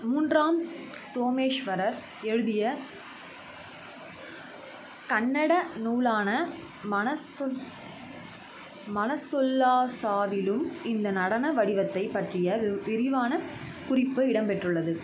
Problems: constant background noise